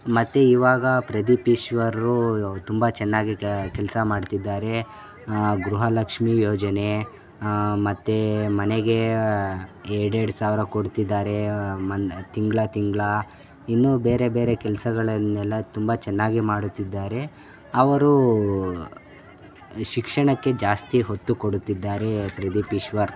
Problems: constant background noise, background conversations at intervals